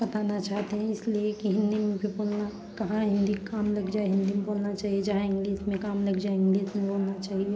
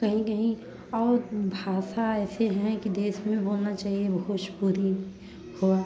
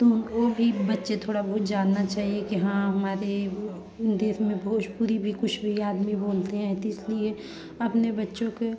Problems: continuous background conversations